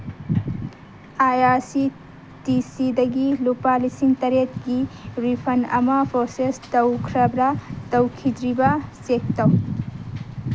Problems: background sounds at intervals